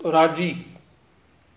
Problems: constant background noise